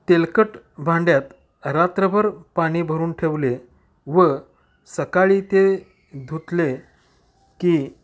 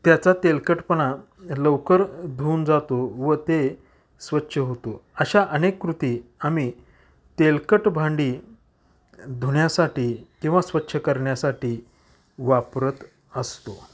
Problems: none marked